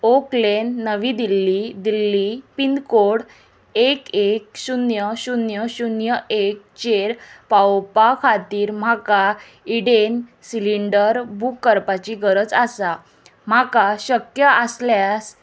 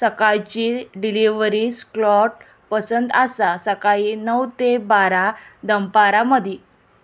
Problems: none marked